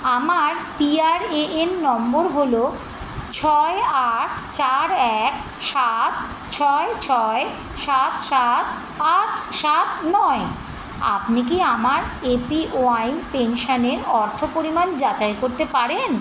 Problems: constant background noise